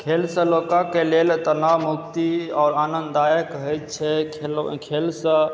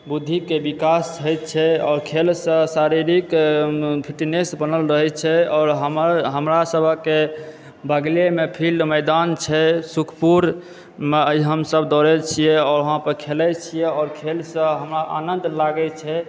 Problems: background sounds at intervals, background conversations at intervals